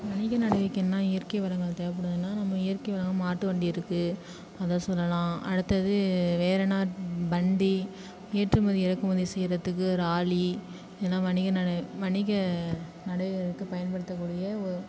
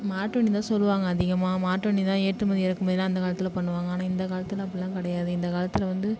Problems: none marked